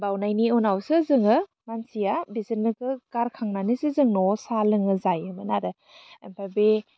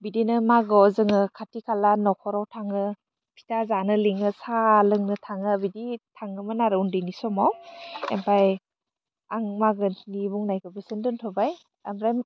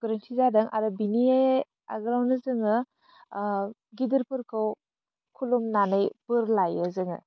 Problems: none marked